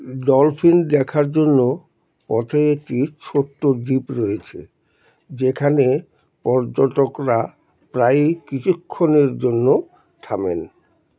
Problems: none marked